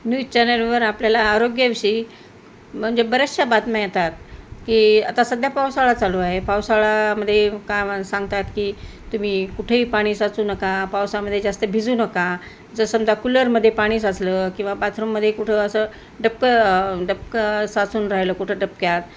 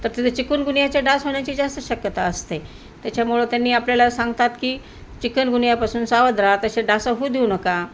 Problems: constant background noise